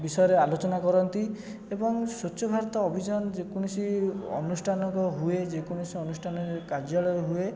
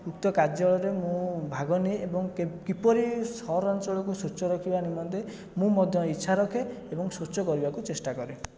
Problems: constant background noise, continuous background conversations